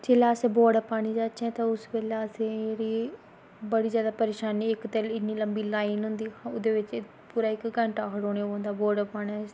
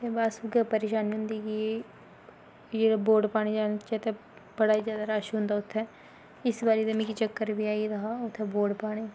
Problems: background sounds at intervals